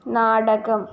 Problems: none marked